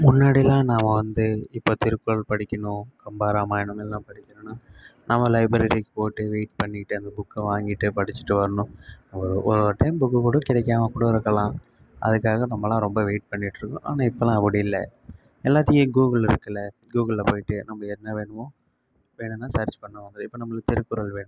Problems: none marked